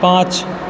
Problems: background sounds at intervals